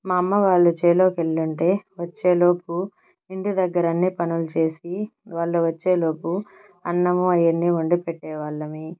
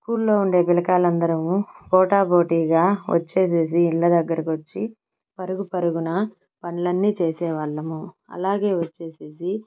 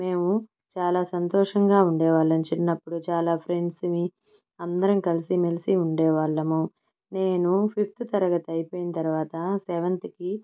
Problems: background sounds at intervals